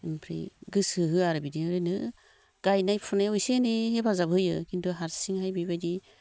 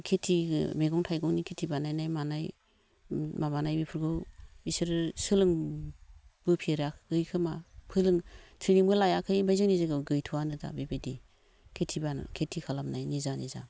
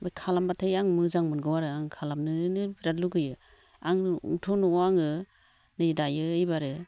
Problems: low volume